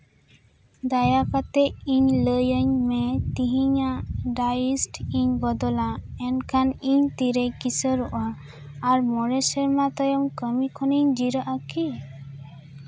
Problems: background sounds at intervals, background conversations at intervals